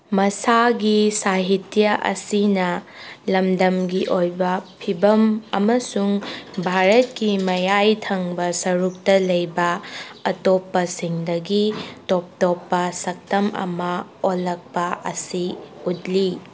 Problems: background sounds at intervals